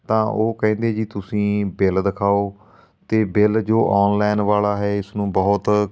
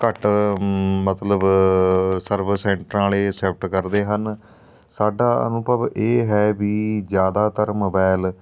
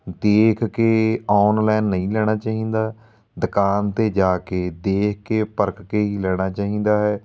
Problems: background sounds at intervals